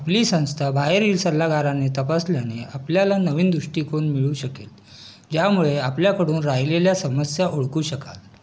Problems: background sounds at intervals, background conversations at intervals